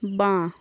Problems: continuous background conversations